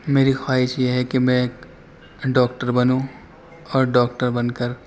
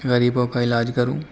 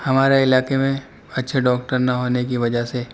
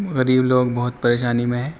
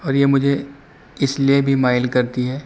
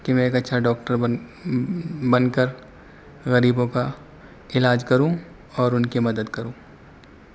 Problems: constant background noise